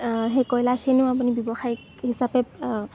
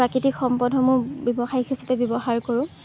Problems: background sounds at intervals